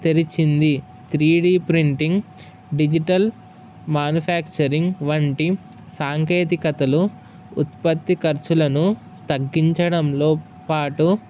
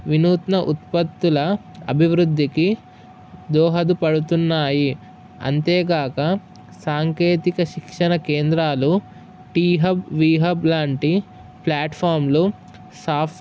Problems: none marked